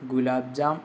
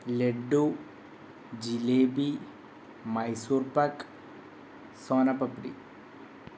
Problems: constant background noise